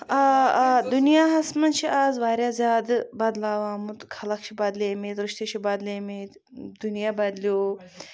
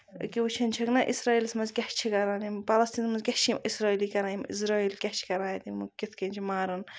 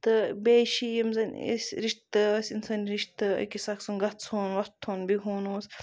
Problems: none marked